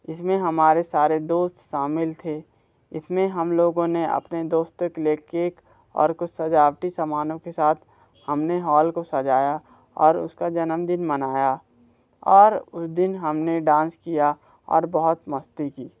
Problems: background sounds at intervals